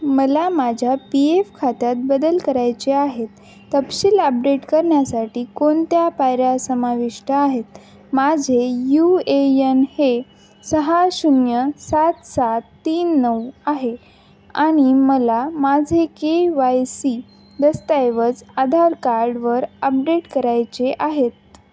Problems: constant background noise